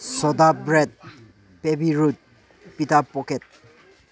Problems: low volume